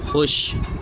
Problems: constant background noise